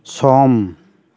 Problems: constant background noise